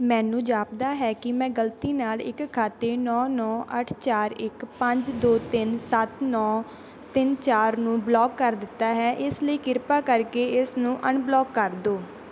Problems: background sounds at intervals